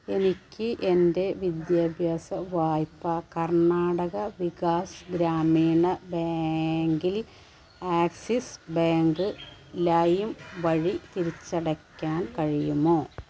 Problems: background sounds at intervals